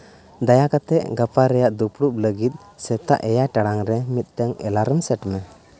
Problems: none marked